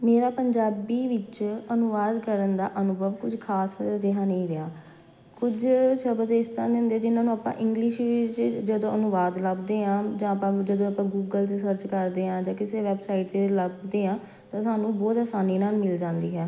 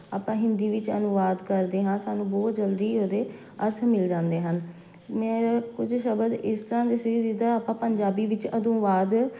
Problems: background sounds at intervals